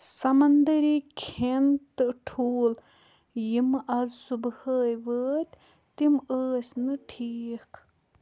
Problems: low volume